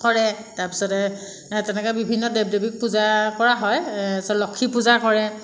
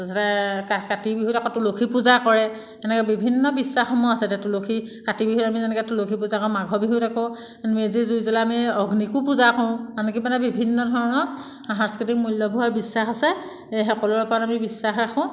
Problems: background sounds at intervals